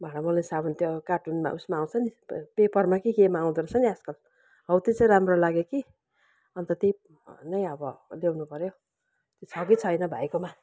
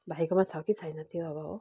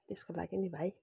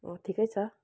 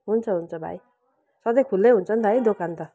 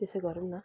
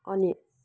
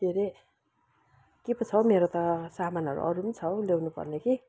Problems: background sounds at intervals